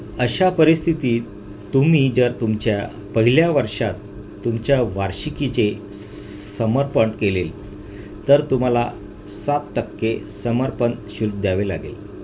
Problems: constant background noise